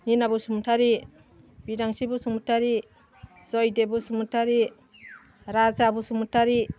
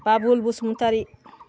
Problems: none marked